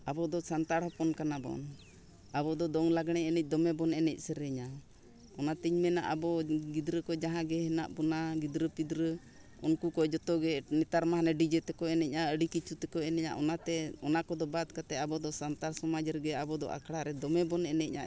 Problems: background sounds at intervals